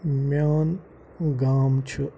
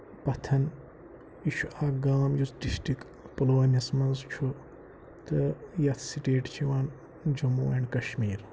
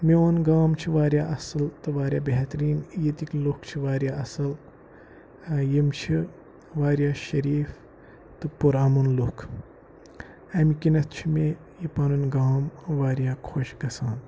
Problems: background sounds at intervals, low volume